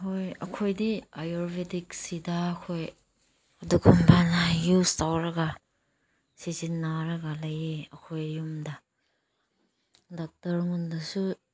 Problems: none marked